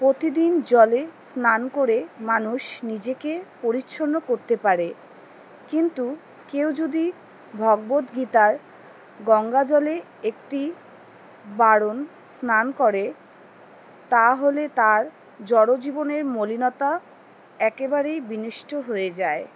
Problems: background sounds at intervals, background conversations at intervals